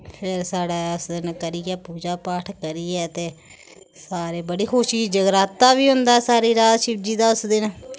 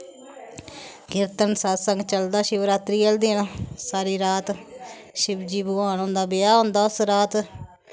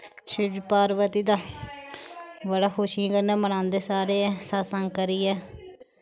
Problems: none marked